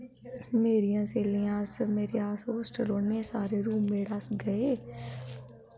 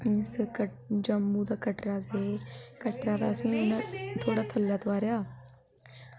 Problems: constant background noise